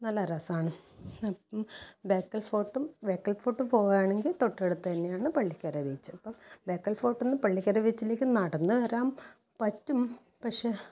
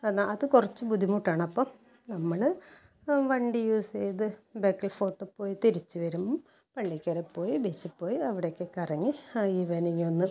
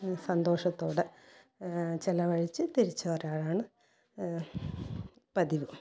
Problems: low volume